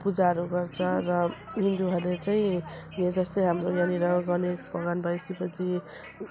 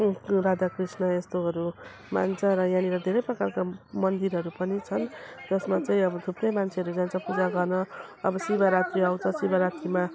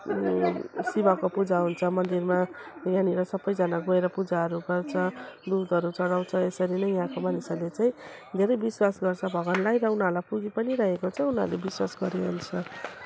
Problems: constant background noise